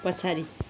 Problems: constant background noise